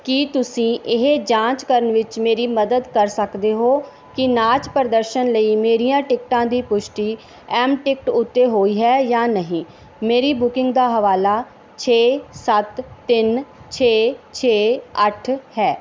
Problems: background sounds at intervals